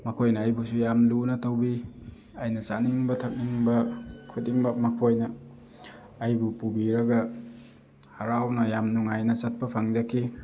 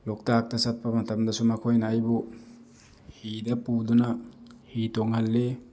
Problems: constant background noise